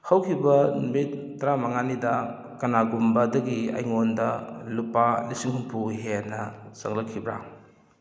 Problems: none marked